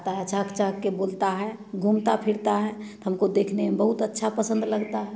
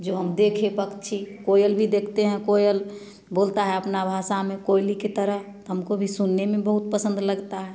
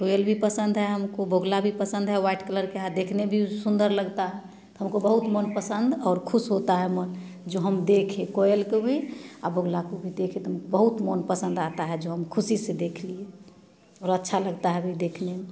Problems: background sounds at intervals